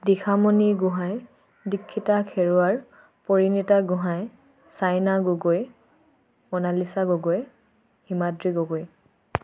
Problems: none marked